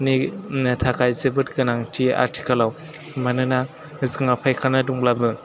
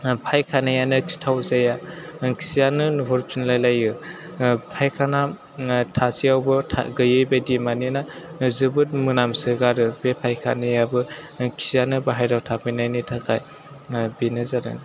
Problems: background conversations at intervals